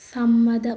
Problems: background sounds at intervals